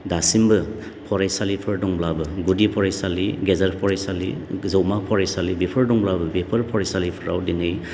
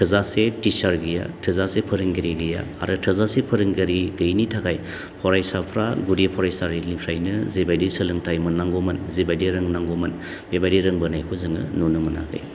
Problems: constant background noise